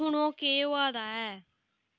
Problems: none marked